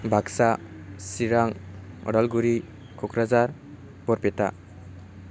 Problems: constant background noise